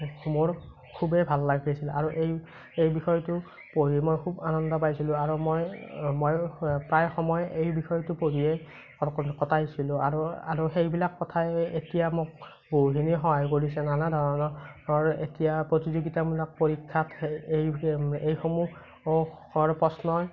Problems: constant background noise